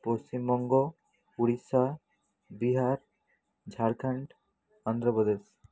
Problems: none marked